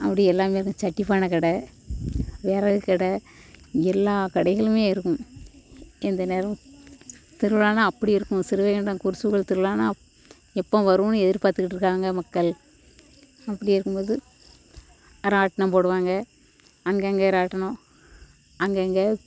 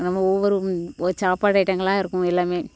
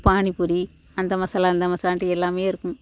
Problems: background sounds at intervals